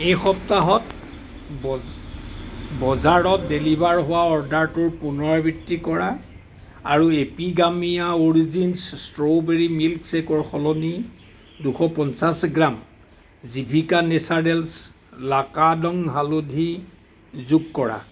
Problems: constant background noise